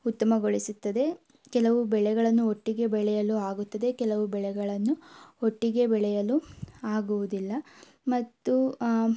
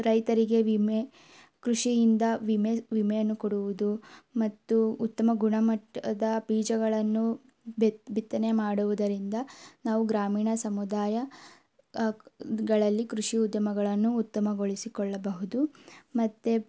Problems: none marked